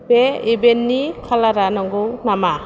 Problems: constant background noise